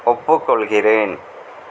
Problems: constant background noise